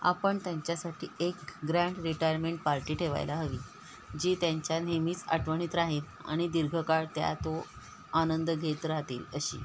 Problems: none marked